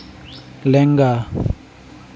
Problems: background sounds at intervals